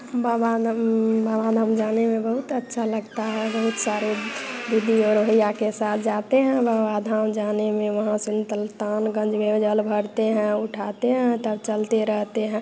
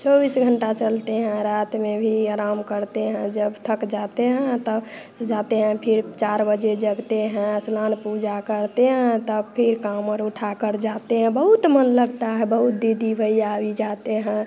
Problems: none marked